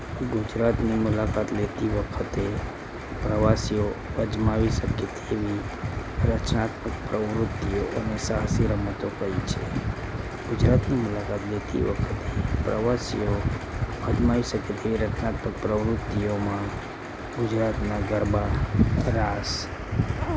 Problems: constant background noise